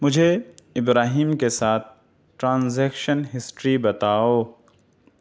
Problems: none marked